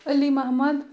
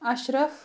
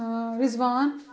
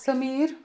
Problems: background sounds at intervals